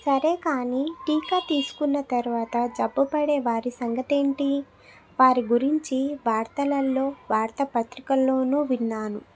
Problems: background sounds at intervals, background conversations at intervals